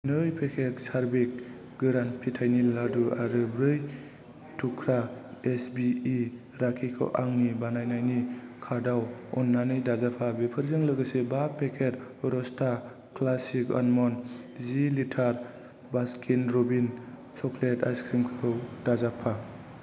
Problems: constant background noise